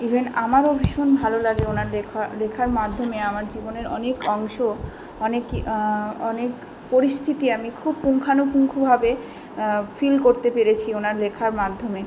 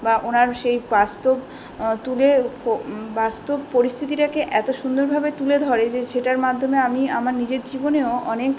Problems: background conversations at intervals